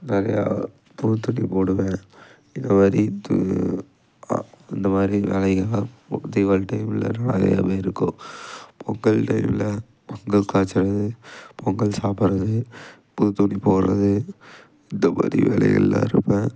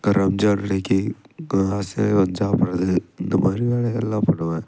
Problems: background sounds at intervals